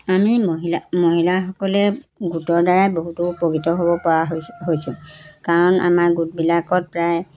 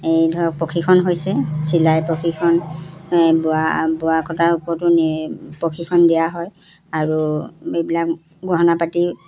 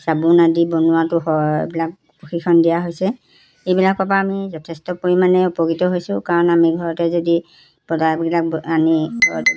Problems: background conversations at intervals